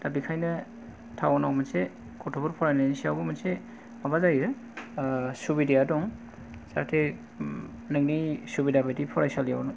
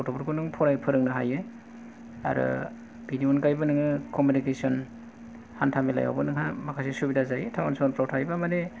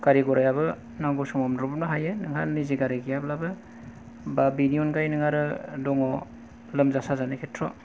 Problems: low volume